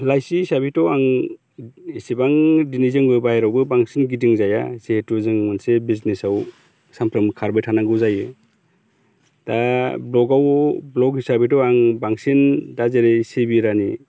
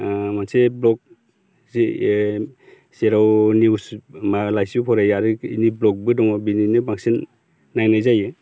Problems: none marked